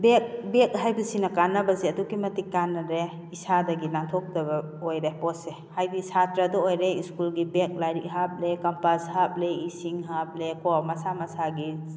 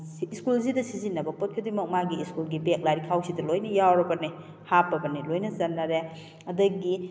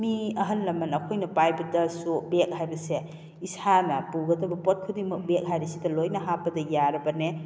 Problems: constant background noise